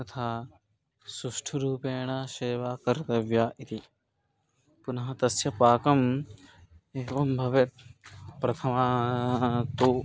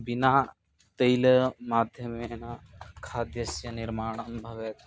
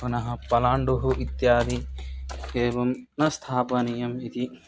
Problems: constant background noise, background conversations at intervals